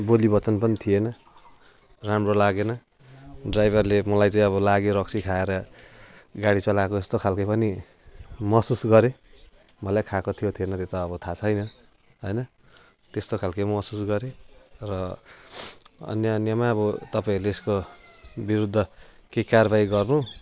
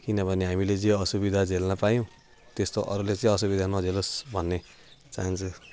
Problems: constant background noise